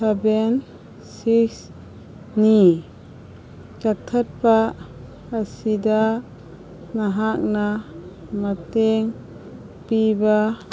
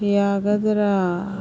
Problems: background sounds at intervals